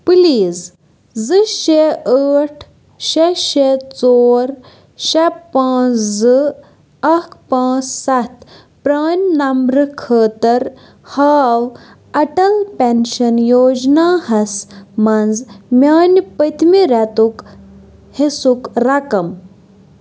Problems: none marked